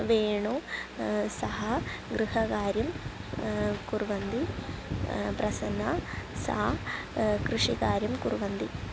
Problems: constant background noise